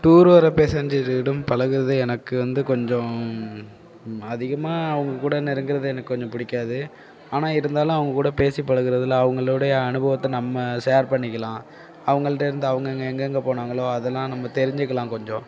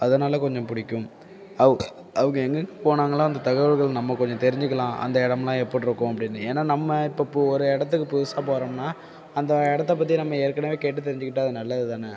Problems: background sounds at intervals